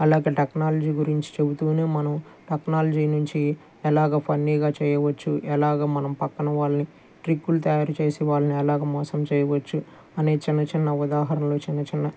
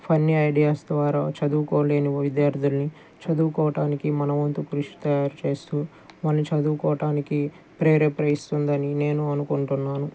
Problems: none marked